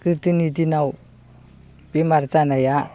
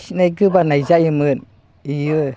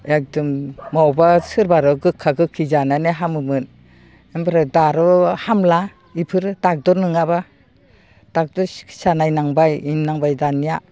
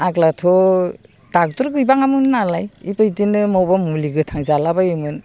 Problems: none marked